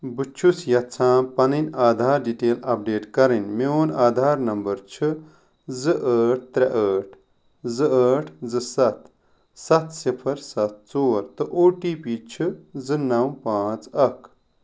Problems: none marked